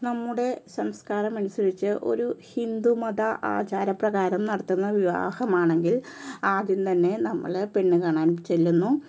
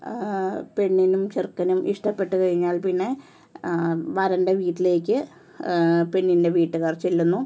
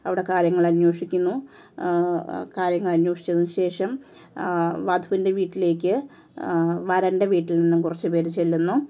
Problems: low volume